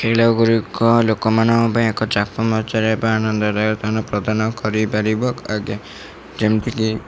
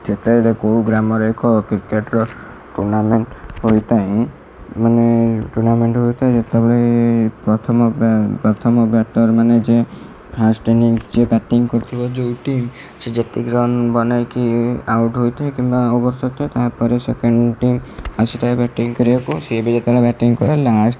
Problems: constant background noise